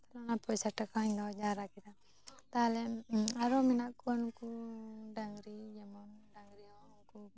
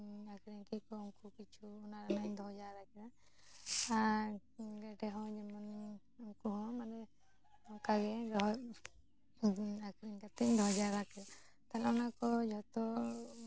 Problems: none marked